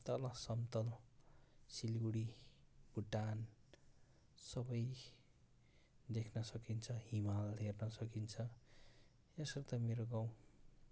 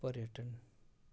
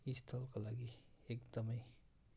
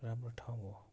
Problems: none marked